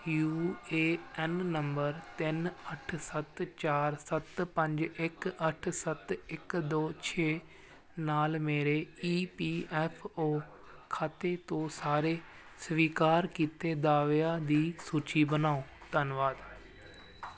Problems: constant background noise